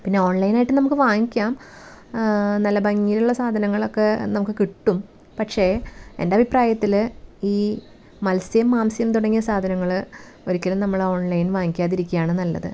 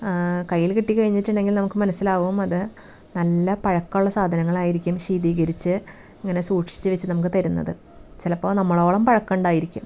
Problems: background sounds at intervals